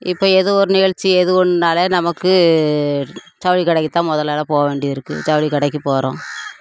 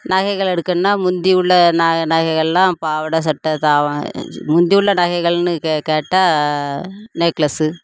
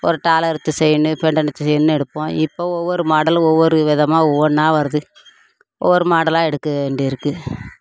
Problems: none marked